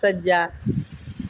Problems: none marked